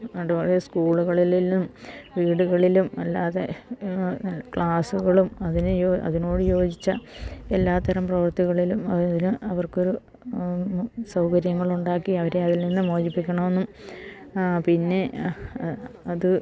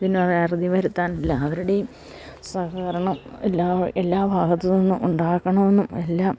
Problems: low volume